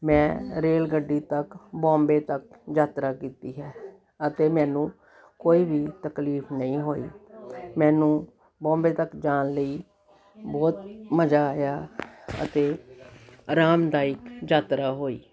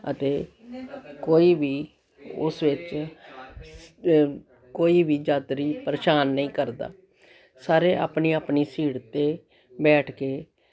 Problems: continuous background conversations